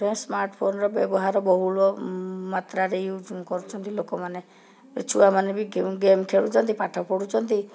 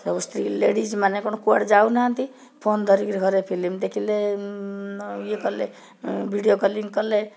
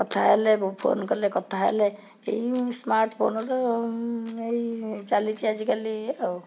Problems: background conversations at intervals